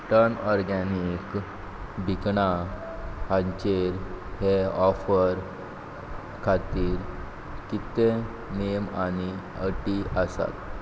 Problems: none marked